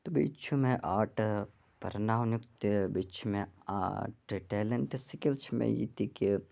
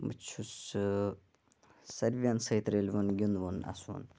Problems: background sounds at intervals